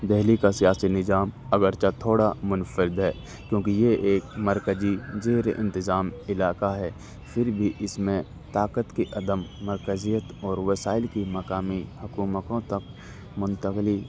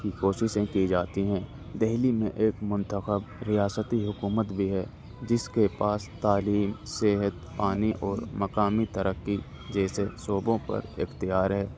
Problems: constant background noise